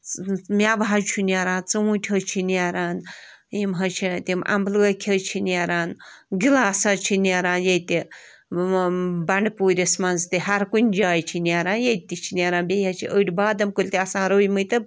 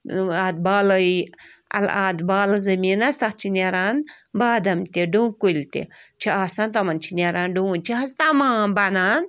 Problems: none marked